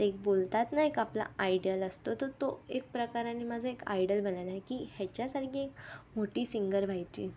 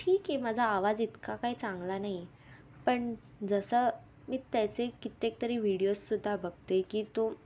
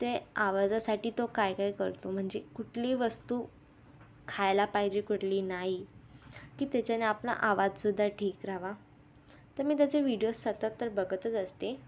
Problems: constant background noise, background conversations at intervals